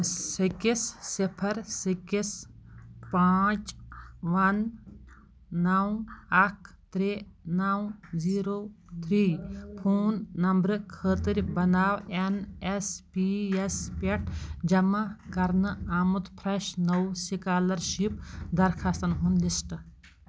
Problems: background sounds at intervals